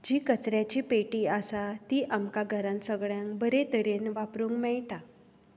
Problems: constant background noise